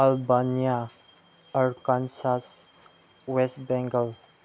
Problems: none marked